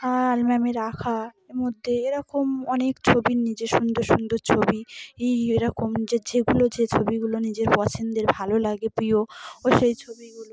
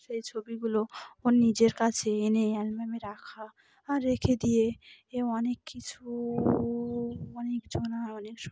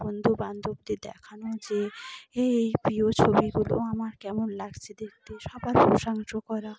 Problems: constant background noise, background conversations at intervals